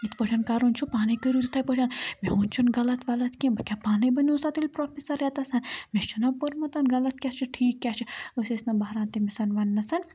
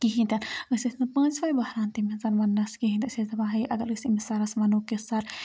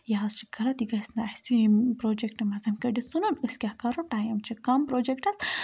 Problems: background sounds at intervals